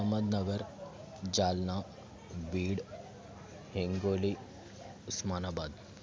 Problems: background sounds at intervals, continuous background conversations